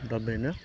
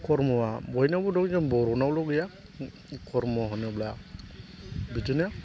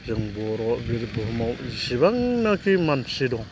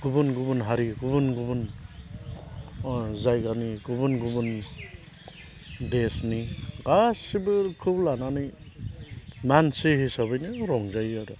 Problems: constant background noise